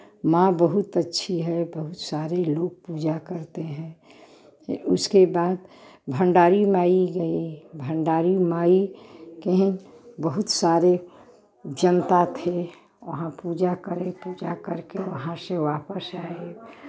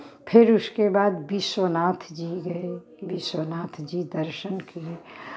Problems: constant background noise, continuous background conversations